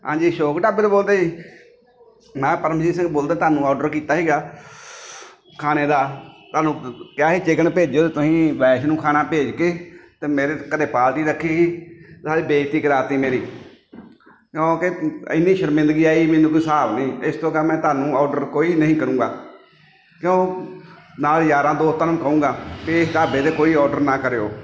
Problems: background sounds at intervals, background conversations at intervals